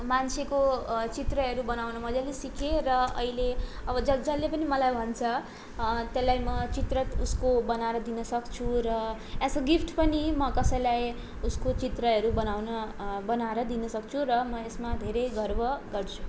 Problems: none marked